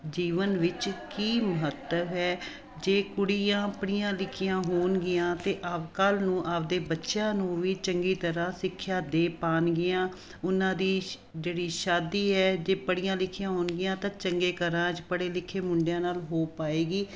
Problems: none marked